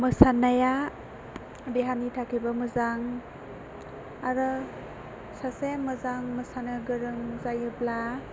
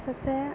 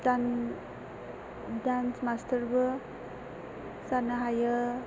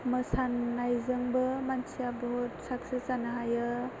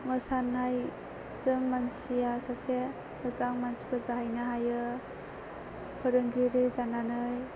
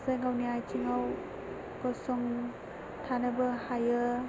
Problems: constant background noise, low volume